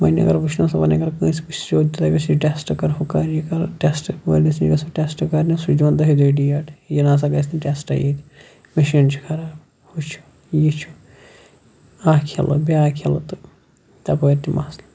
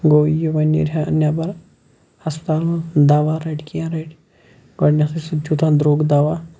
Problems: none marked